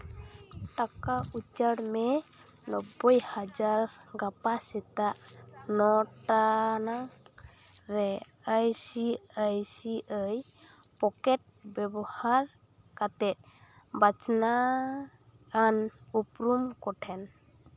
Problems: constant background noise, background conversations at intervals